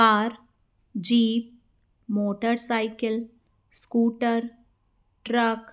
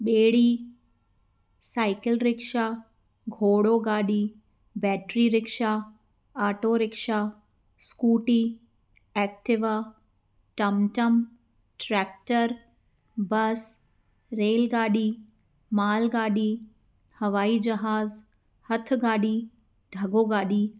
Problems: none marked